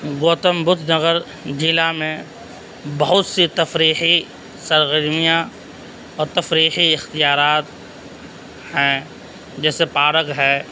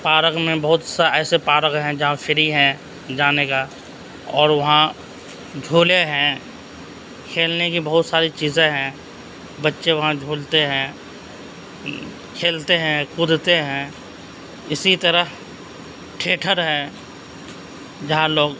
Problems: constant background noise